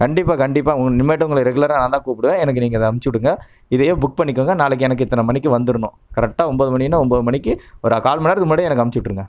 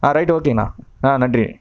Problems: none marked